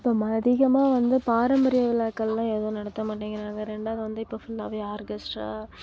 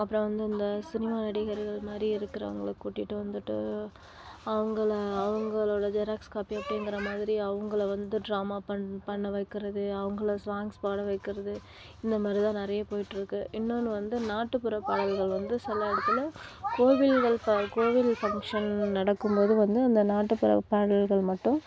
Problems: none marked